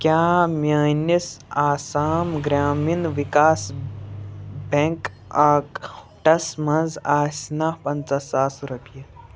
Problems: background sounds at intervals, background conversations at intervals